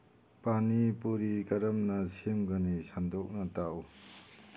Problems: background sounds at intervals